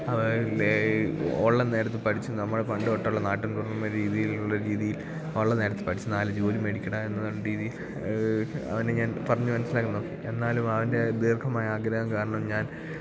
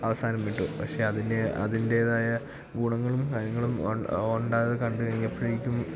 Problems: low volume